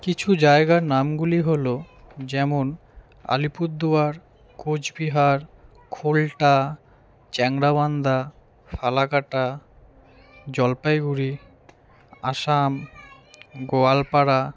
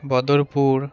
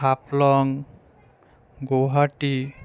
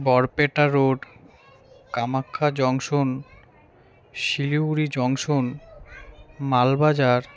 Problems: continuous background conversations